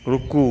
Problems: none marked